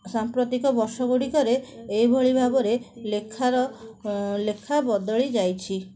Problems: background sounds at intervals, background conversations at intervals